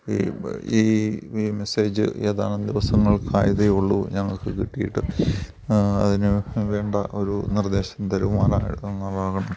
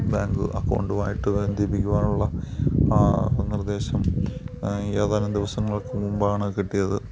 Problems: background sounds at intervals